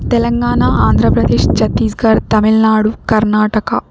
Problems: continuous background conversations